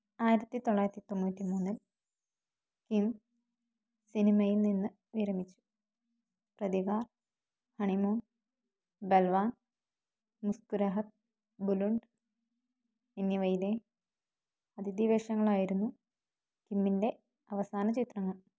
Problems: low volume